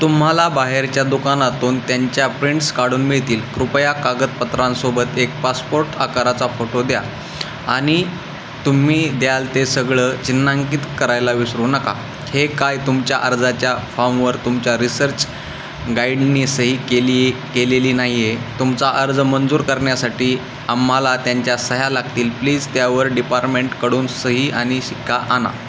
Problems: constant background noise